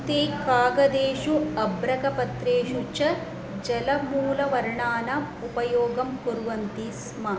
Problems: background sounds at intervals